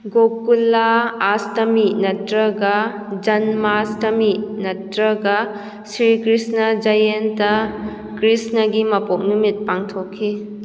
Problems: none marked